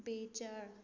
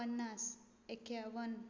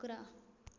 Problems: low volume